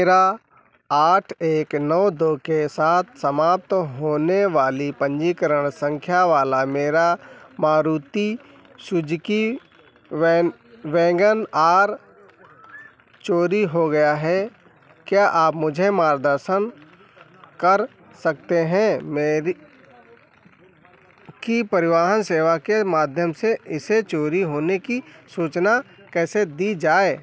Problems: constant background noise